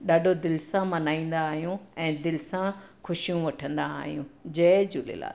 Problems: none marked